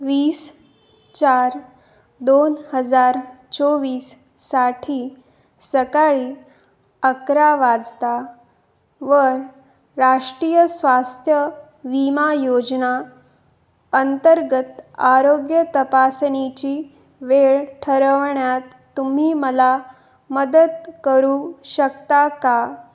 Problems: background sounds at intervals